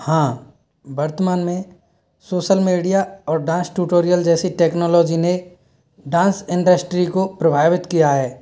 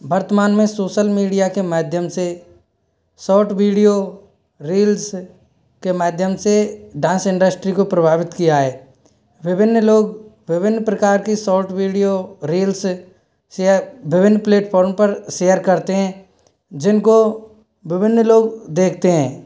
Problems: none marked